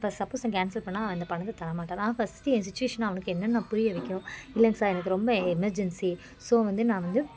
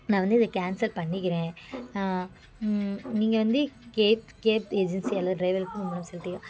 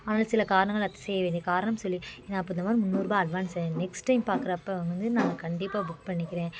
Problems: constant background noise, continuous background conversations